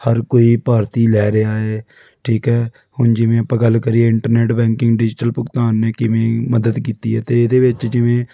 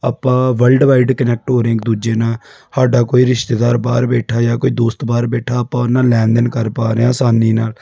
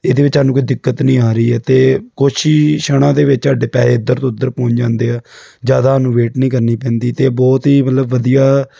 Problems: background sounds at intervals